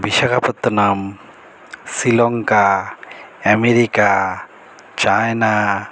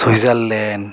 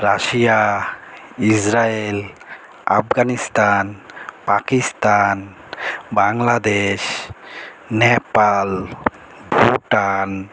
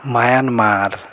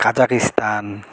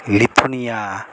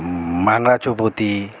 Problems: background conversations at intervals